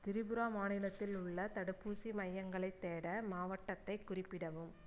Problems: low volume